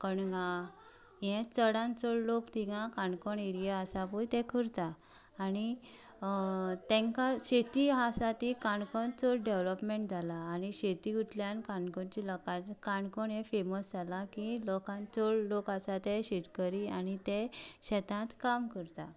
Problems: background conversations at intervals